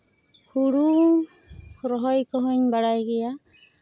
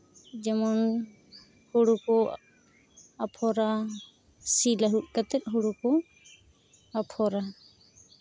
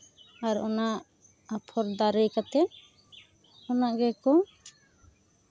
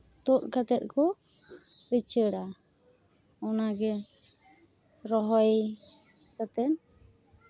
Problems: background sounds at intervals